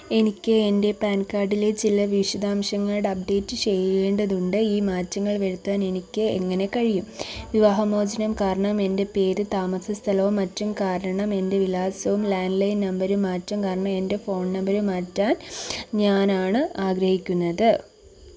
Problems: constant background noise